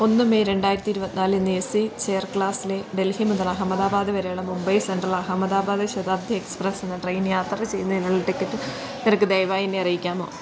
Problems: background sounds at intervals